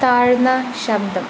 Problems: constant background noise